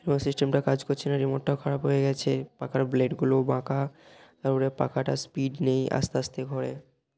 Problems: none marked